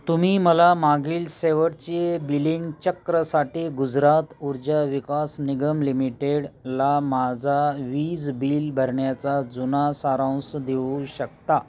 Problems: constant background noise, continuous background conversations